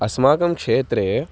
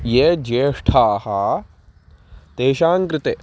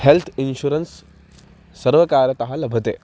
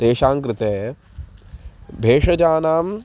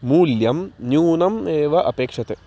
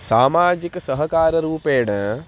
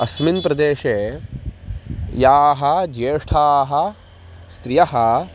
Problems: constant background noise